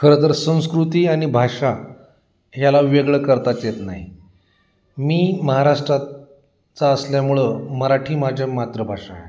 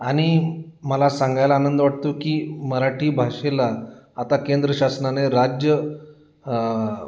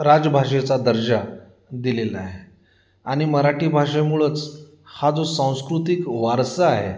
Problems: constant background noise, background conversations at intervals